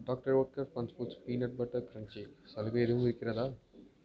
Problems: constant background noise, background conversations at intervals, low volume